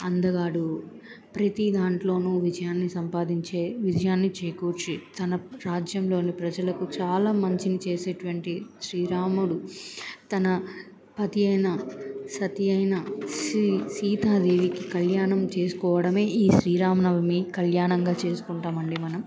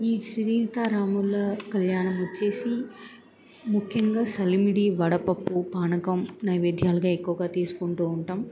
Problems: background conversations at intervals